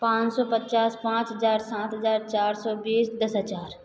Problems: echo